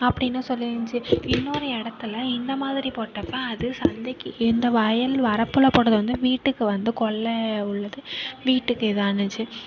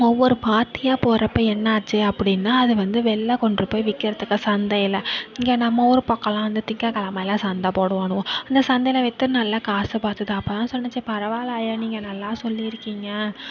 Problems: continuous background conversations